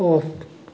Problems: none marked